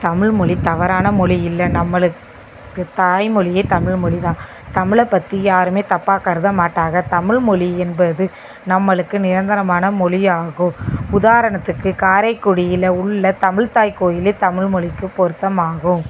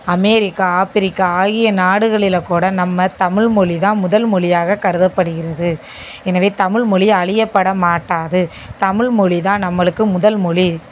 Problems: constant background noise